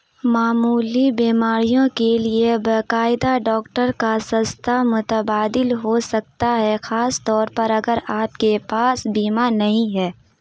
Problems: constant background noise